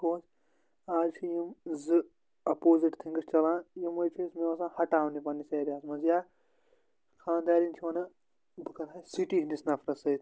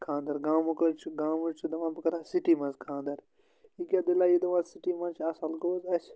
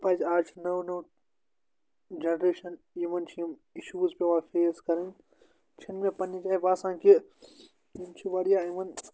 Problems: constant background noise